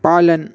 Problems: constant background noise